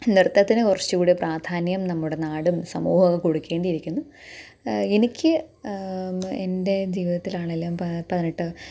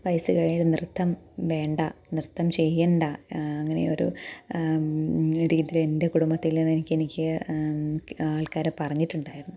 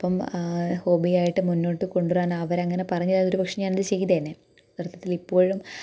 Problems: none marked